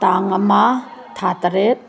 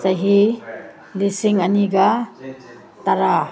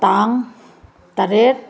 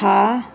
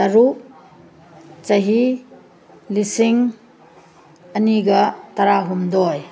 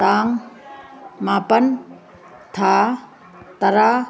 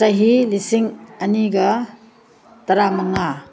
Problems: background sounds at intervals